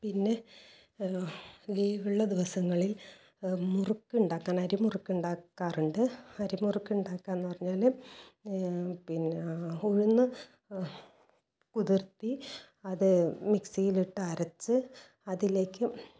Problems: low volume